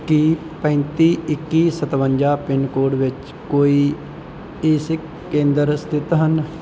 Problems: none marked